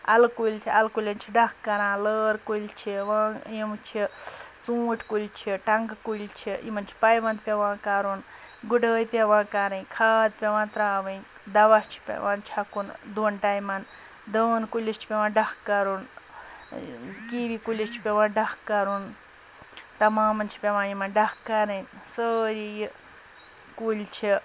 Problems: background sounds at intervals, background conversations at intervals